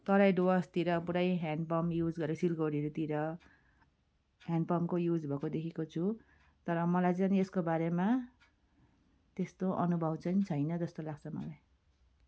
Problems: background sounds at intervals